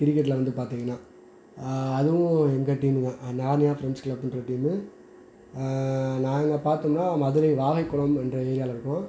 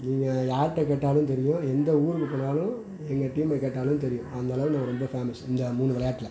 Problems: background conversations at intervals